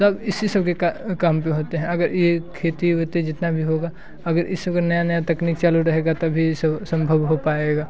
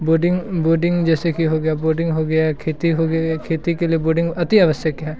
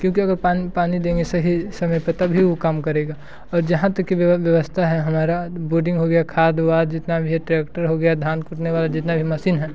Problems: constant background noise